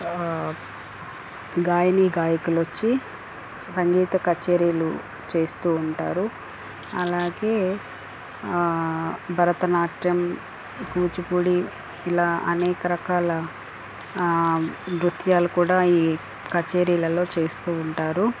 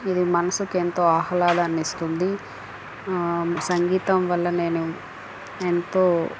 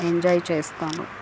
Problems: constant background noise